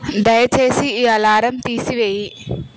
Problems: constant background noise